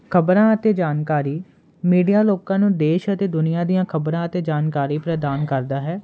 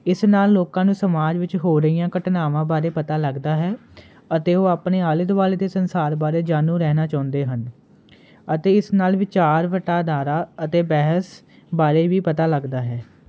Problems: constant background noise